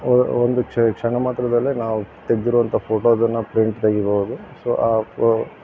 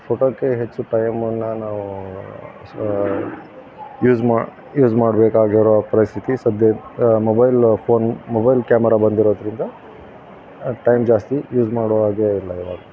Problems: none marked